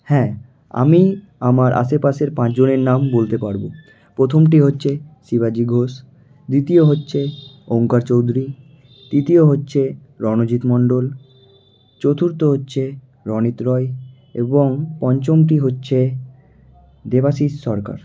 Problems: none marked